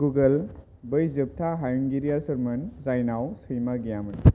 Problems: low volume